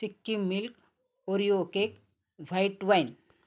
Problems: none marked